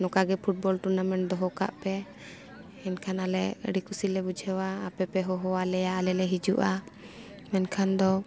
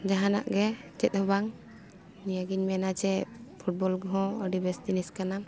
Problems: background sounds at intervals